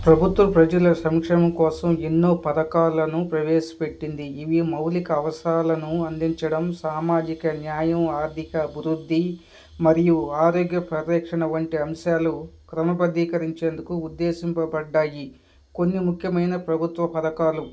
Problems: background sounds at intervals, background conversations at intervals